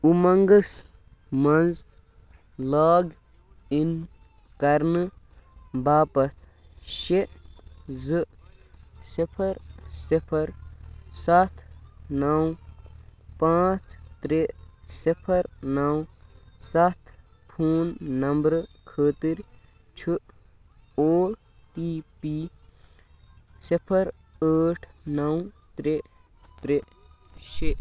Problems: none marked